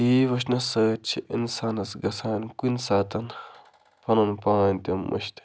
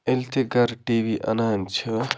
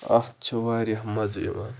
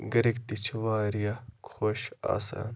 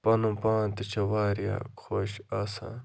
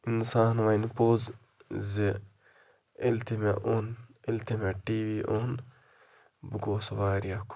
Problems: constant background noise, background conversations at intervals